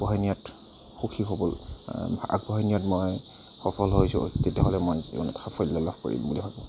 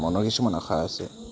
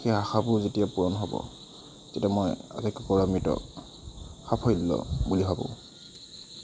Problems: constant background noise, background conversations at intervals